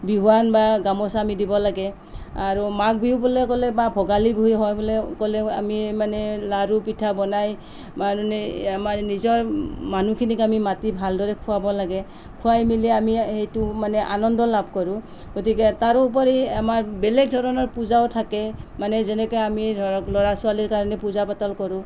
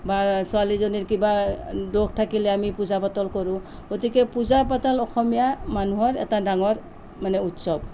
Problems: background conversations at intervals